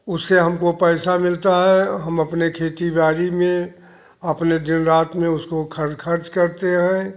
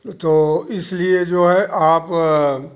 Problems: none marked